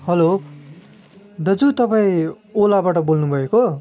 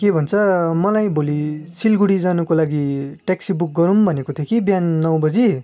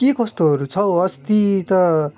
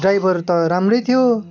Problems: constant background noise, background conversations at intervals